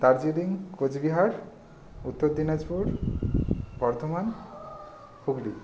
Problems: none marked